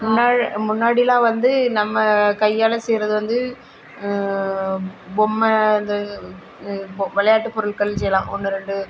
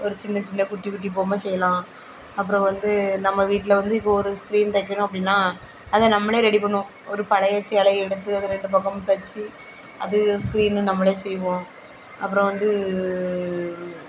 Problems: none marked